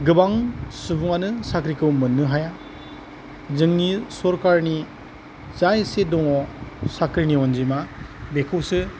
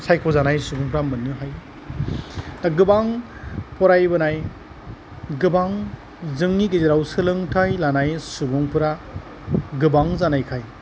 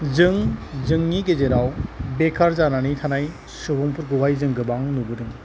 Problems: none marked